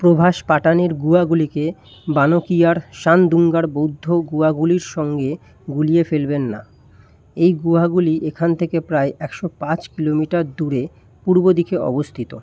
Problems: background sounds at intervals